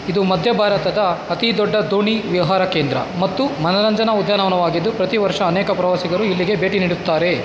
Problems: constant background noise